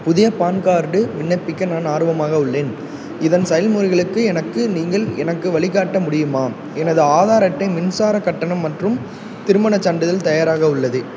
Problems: background sounds at intervals